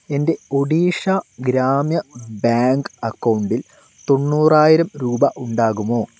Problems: none marked